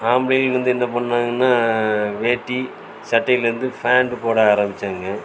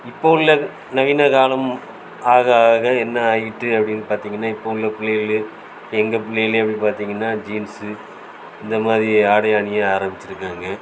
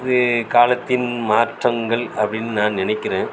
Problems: constant background noise